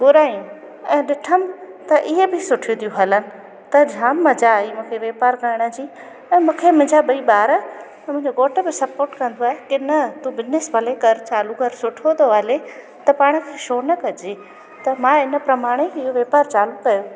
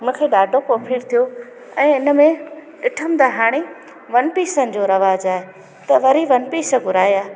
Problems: constant background noise, echo